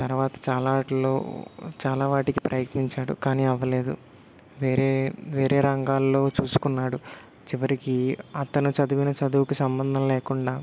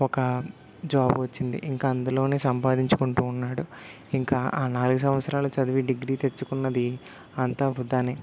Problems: none marked